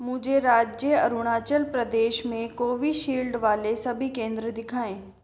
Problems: constant background noise